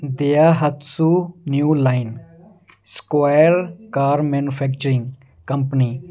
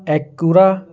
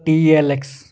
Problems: background sounds at intervals